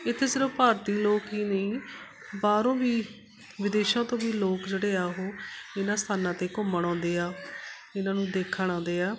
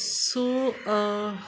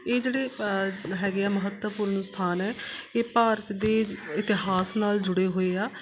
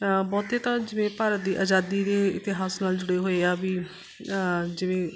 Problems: constant background noise